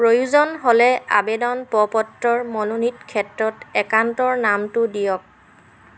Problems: constant background noise, background conversations at intervals